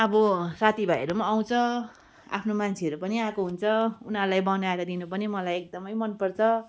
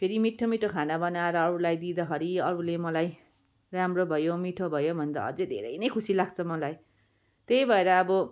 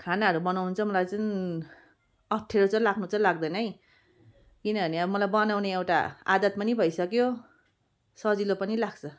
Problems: background sounds at intervals